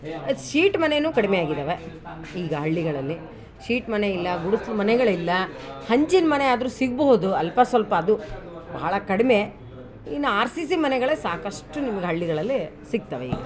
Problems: background sounds at intervals